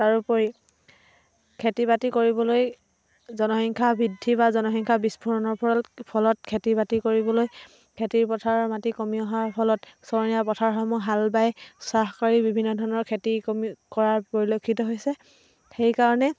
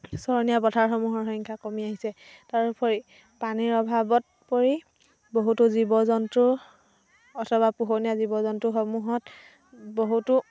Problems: constant background noise